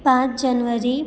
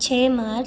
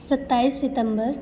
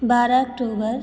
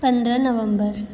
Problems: background sounds at intervals